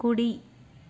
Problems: constant background noise